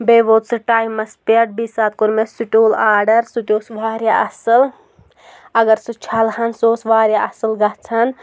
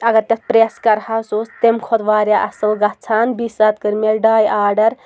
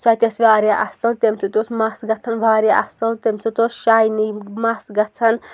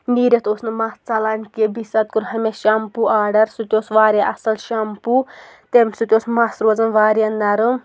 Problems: none marked